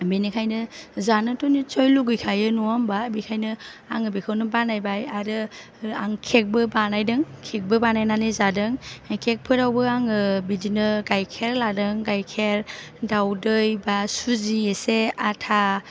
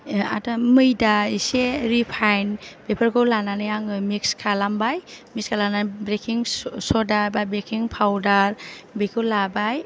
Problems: none marked